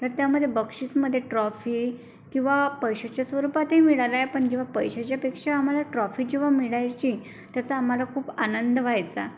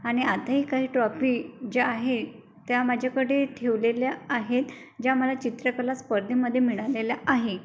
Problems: constant background noise